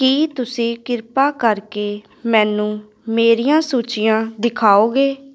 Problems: continuous background conversations